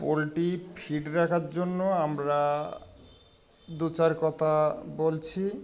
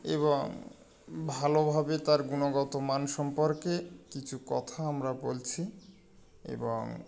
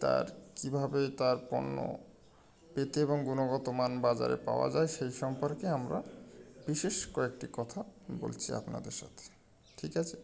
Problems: constant background noise